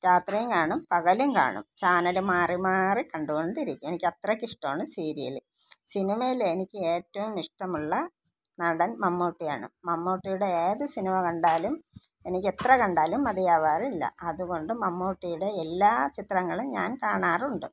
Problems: none marked